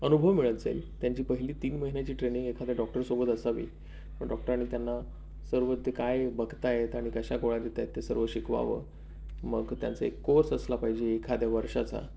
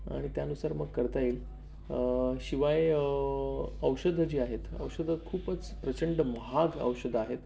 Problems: none marked